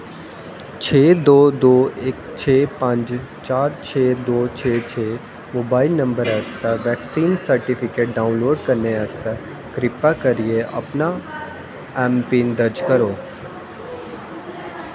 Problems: constant background noise, echo